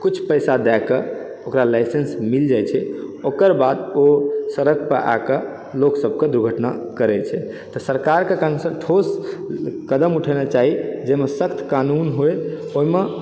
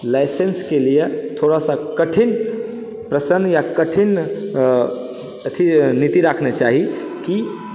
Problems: background sounds at intervals